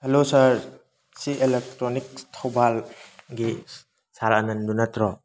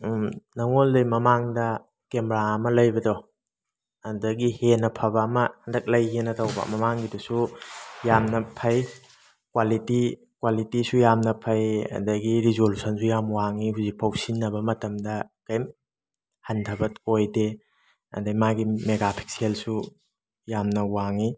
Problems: background sounds at intervals